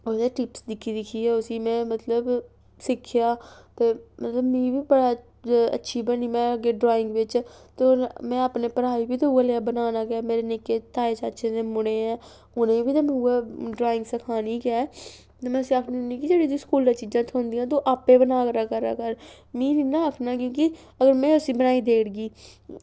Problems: background sounds at intervals